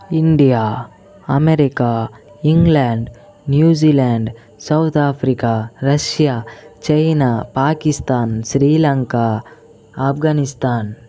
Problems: continuous background conversations